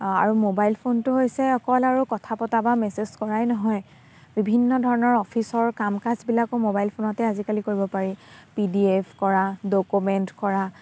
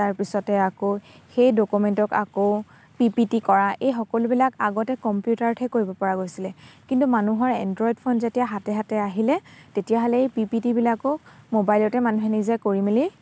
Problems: constant background noise